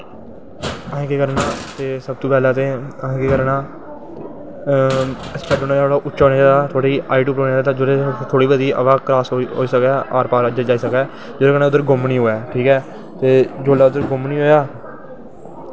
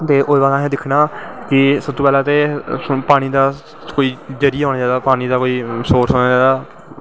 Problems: constant background noise, echo